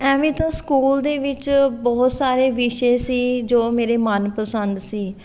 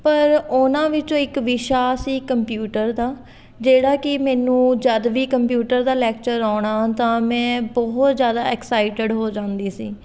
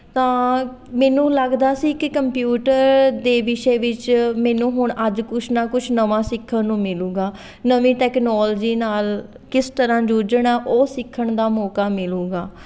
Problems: continuous background conversations